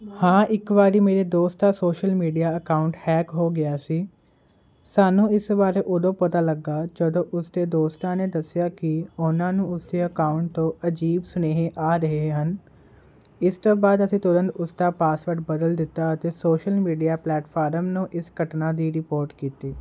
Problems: constant background noise